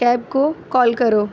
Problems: constant background noise